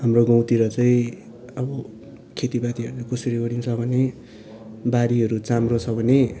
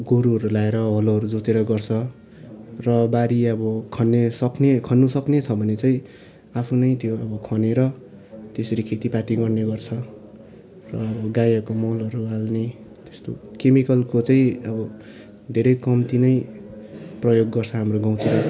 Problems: background sounds at intervals